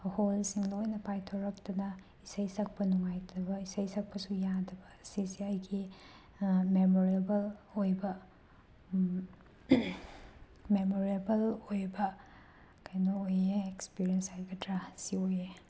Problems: background sounds at intervals